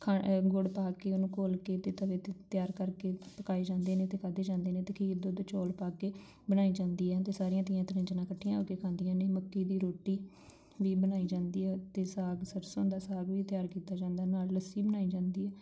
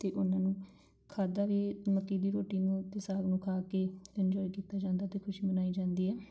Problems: background sounds at intervals